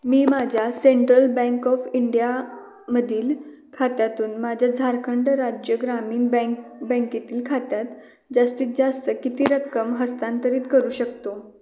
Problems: background sounds at intervals, continuous background conversations